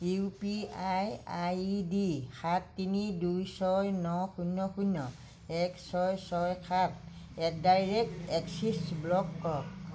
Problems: low volume